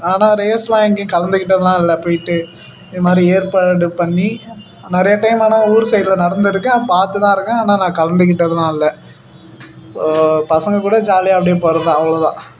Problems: background sounds at intervals